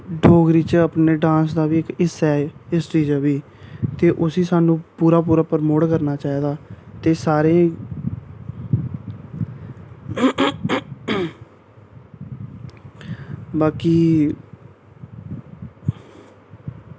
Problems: none marked